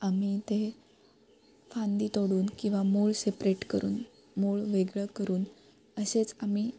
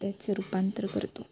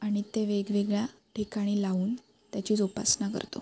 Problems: constant background noise